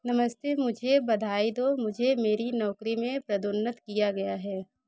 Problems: background sounds at intervals